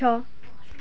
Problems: background sounds at intervals